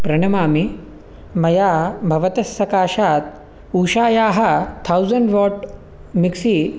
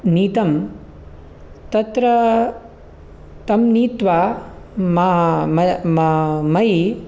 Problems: none marked